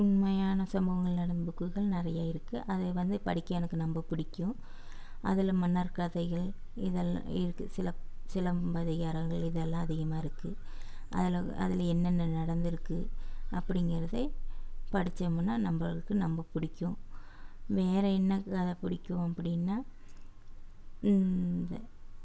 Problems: background sounds at intervals